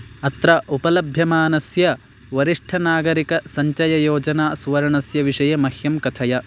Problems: constant background noise